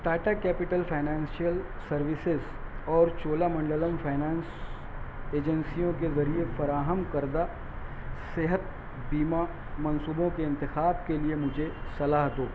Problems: constant background noise, low volume